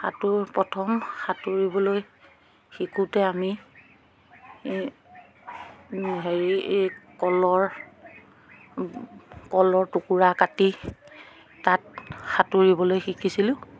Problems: background sounds at intervals, background conversations at intervals